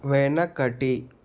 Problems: constant background noise